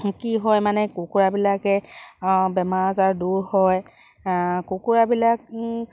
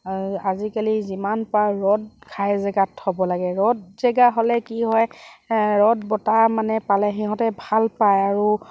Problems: constant background noise